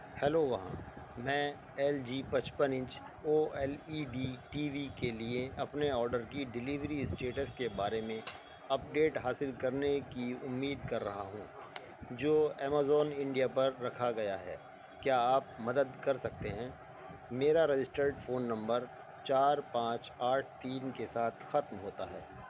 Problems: constant background noise, low volume